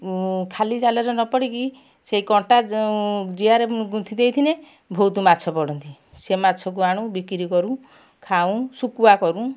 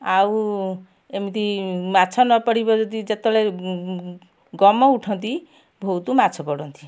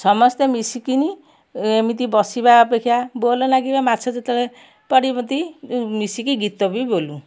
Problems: none marked